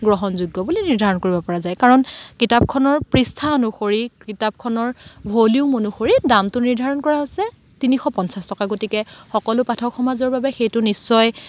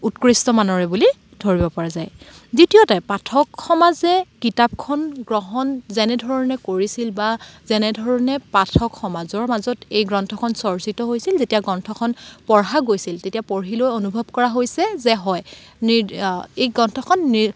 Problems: background sounds at intervals, background conversations at intervals